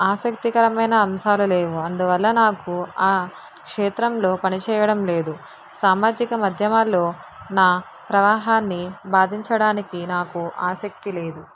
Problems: constant background noise